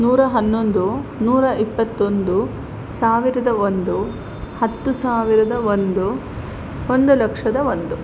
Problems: constant background noise